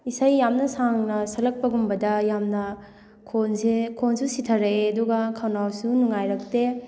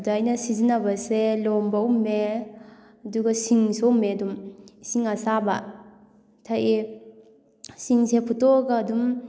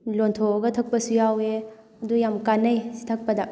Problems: background sounds at intervals, background conversations at intervals